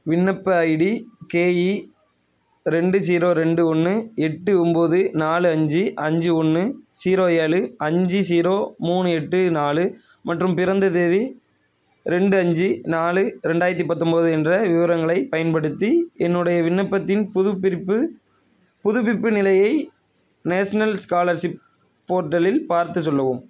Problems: none marked